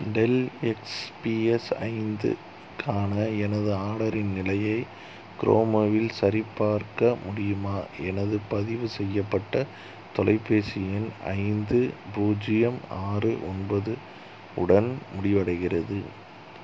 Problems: none marked